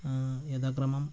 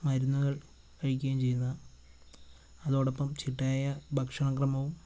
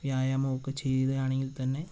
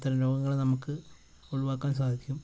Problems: constant background noise